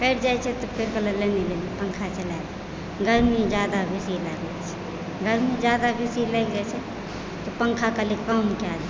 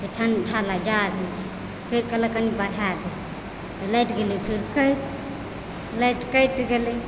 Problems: constant background noise